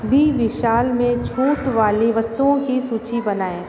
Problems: constant background noise, background conversations at intervals